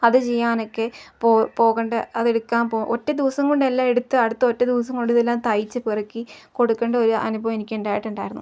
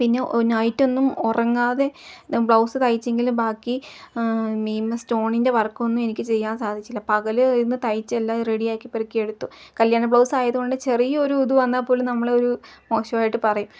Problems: constant background noise, background conversations at intervals, low volume